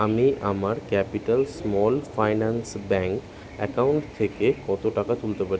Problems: constant background noise